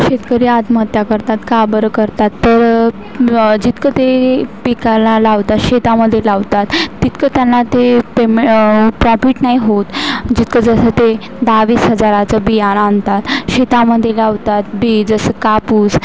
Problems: constant background noise